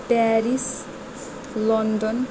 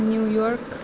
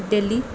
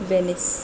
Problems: constant background noise